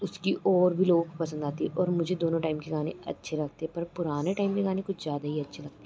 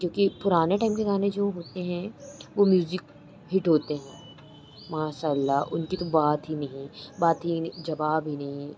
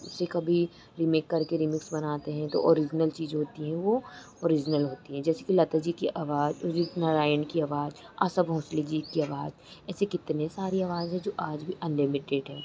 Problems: constant background noise